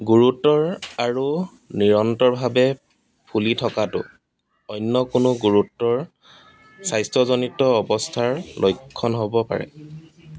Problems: none marked